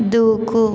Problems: constant background noise